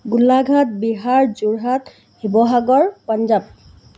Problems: none marked